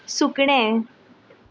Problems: none marked